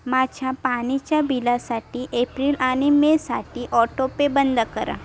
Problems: background sounds at intervals, continuous background conversations